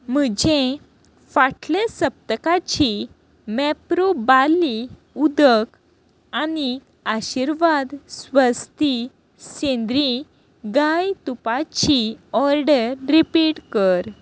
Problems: constant background noise